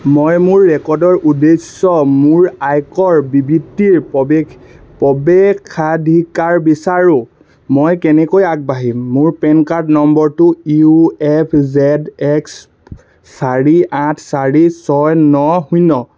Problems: none marked